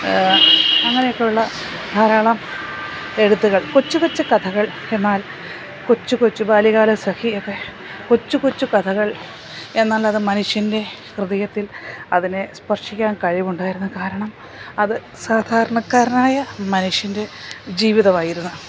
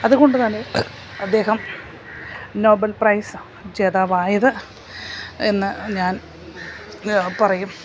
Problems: constant background noise